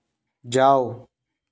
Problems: background sounds at intervals